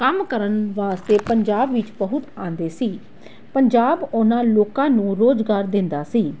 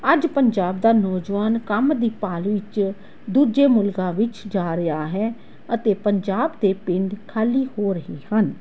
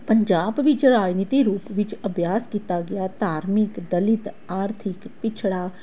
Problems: none marked